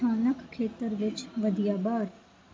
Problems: constant background noise